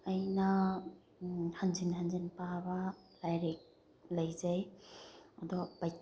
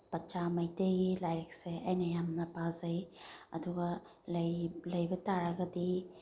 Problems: background sounds at intervals